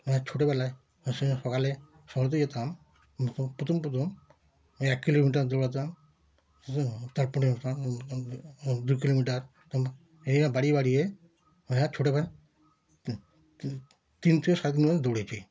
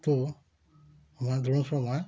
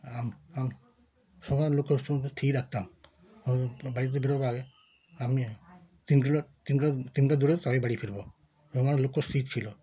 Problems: background sounds at intervals